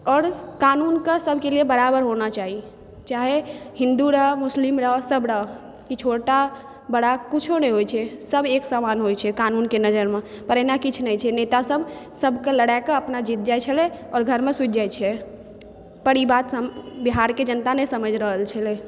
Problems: background sounds at intervals